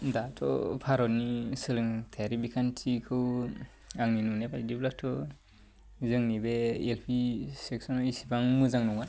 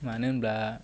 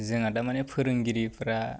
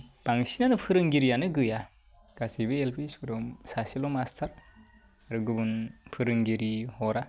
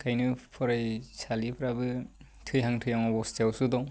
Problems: low volume